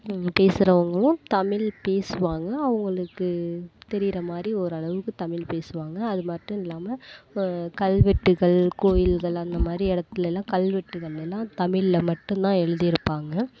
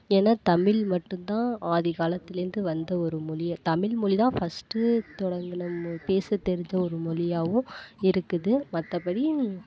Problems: none marked